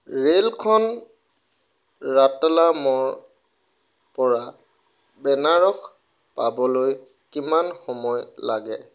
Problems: background sounds at intervals